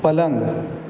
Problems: none marked